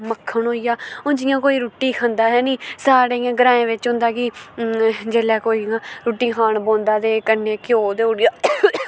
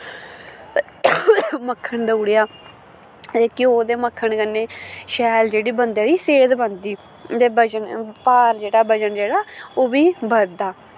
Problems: constant background noise